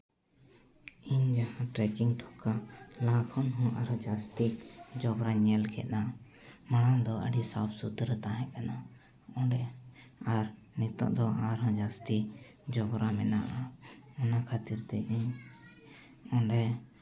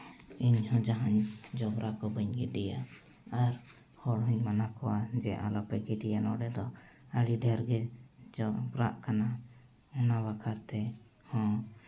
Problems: none marked